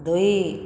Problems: none marked